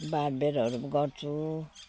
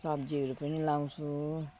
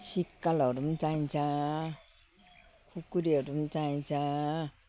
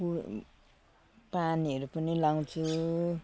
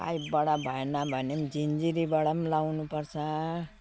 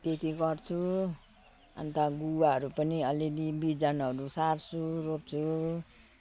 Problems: constant background noise